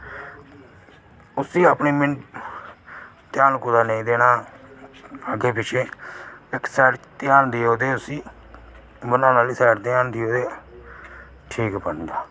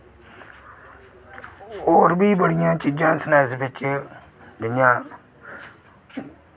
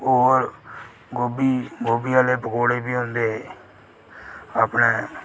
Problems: none marked